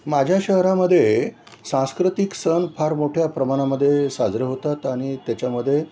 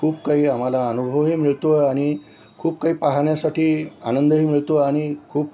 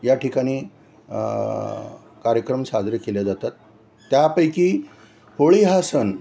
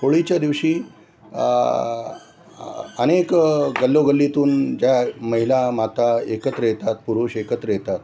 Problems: none marked